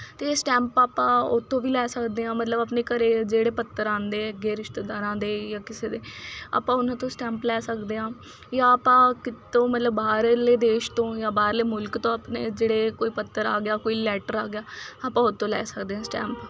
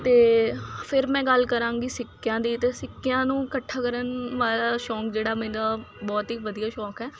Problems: none marked